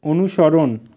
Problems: constant background noise